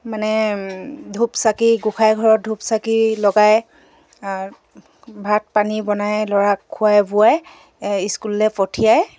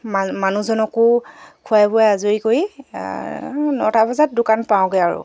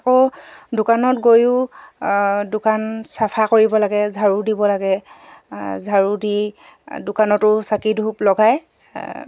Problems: background sounds at intervals